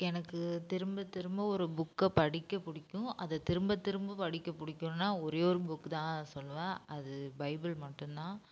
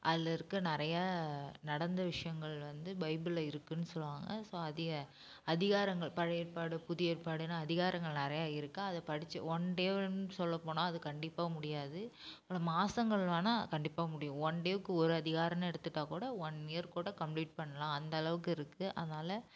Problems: low volume